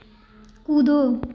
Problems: none marked